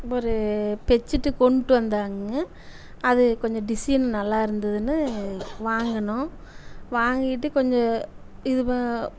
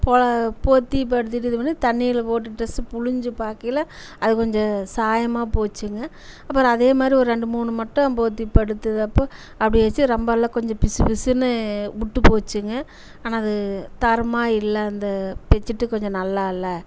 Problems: none marked